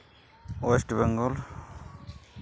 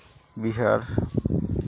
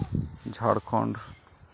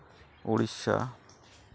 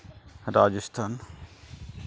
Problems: none marked